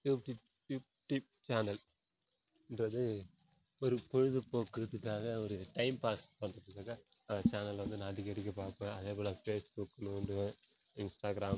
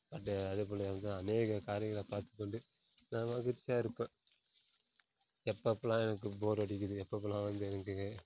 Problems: background sounds at intervals, low volume